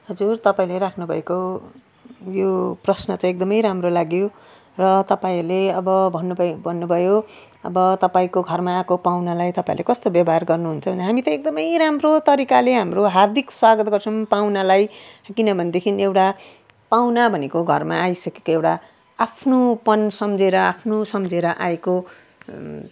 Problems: none marked